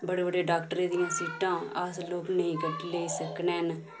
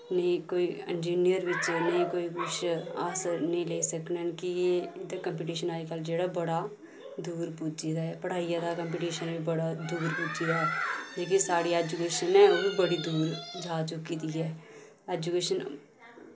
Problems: none marked